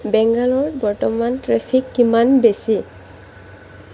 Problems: constant background noise